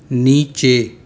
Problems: constant background noise, echo